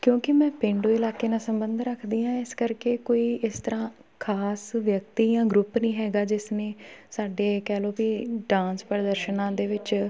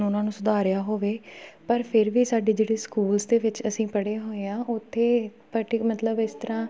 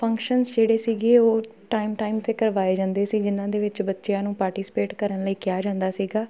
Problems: background sounds at intervals, background conversations at intervals